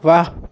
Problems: none marked